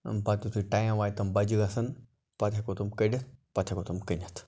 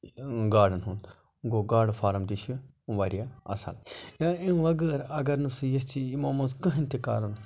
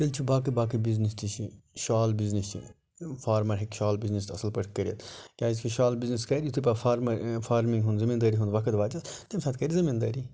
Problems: none marked